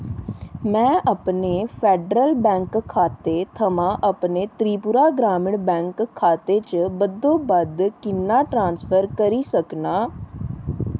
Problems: none marked